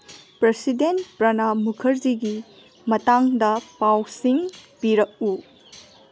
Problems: background sounds at intervals